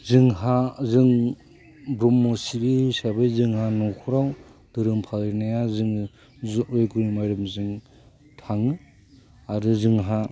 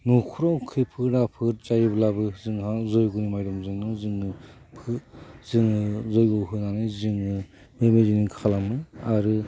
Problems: constant background noise